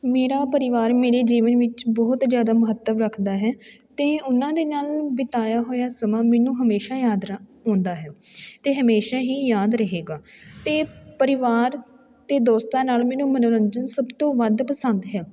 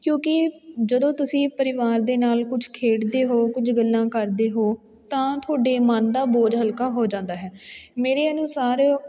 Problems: background sounds at intervals